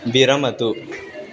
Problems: none marked